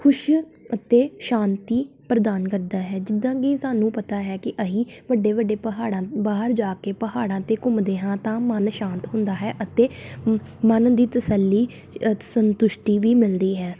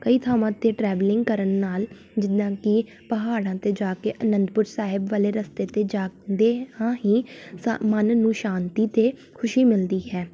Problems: background sounds at intervals